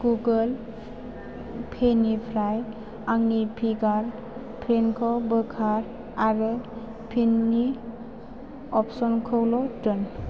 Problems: constant background noise